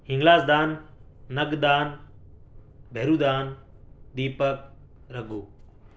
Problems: none marked